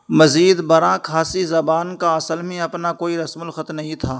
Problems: constant background noise